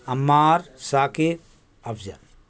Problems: constant background noise